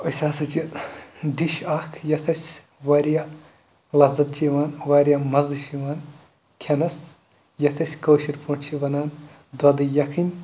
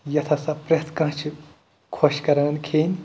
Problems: background sounds at intervals